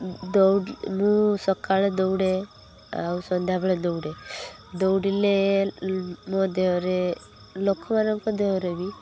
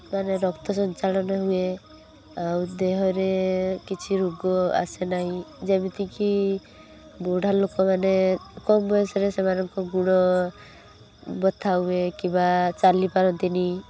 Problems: constant background noise